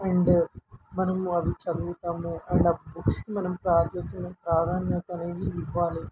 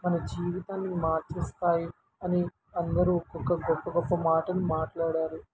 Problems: constant background noise